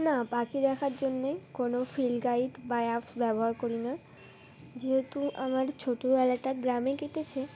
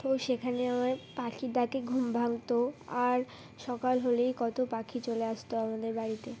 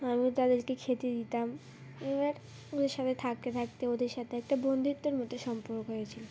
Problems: none marked